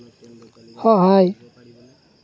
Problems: background sounds at intervals